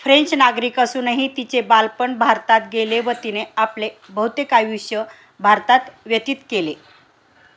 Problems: background sounds at intervals